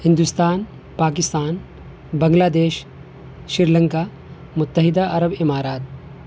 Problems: constant background noise